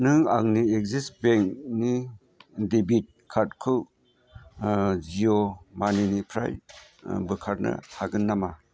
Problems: constant background noise